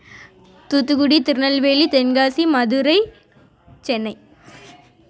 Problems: background conversations at intervals